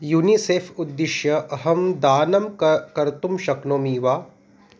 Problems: none marked